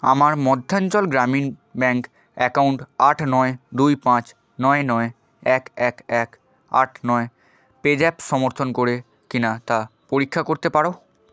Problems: background sounds at intervals